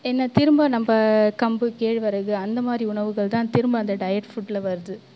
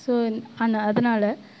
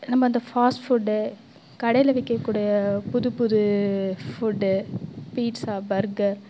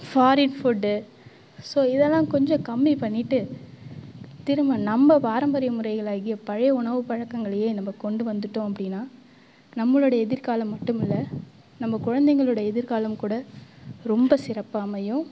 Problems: background sounds at intervals